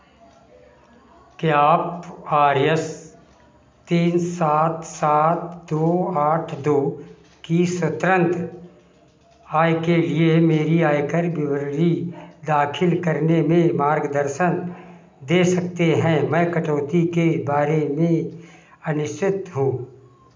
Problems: constant background noise